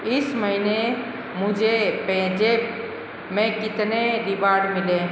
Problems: constant background noise, echo